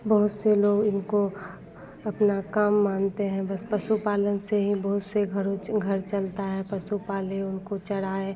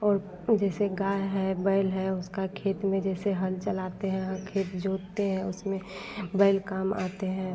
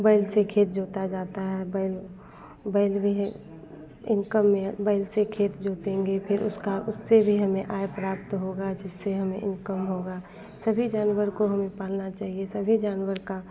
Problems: constant background noise